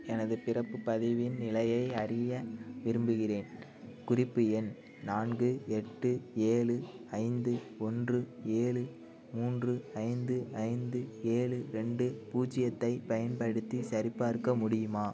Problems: constant background noise, low volume